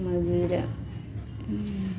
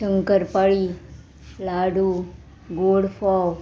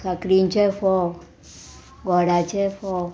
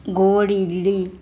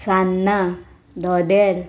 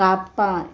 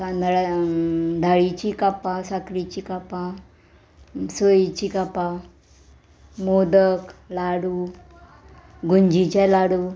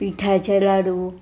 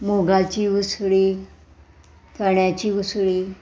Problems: background sounds at intervals